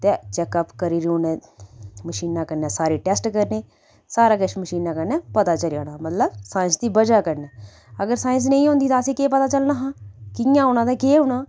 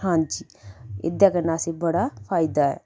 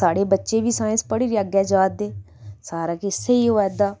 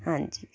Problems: none marked